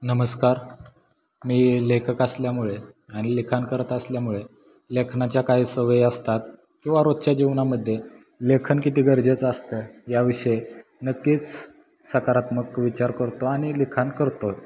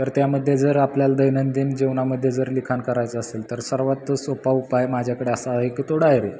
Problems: constant background noise